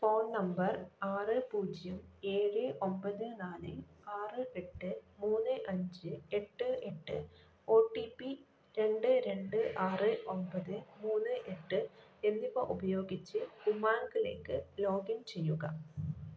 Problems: none marked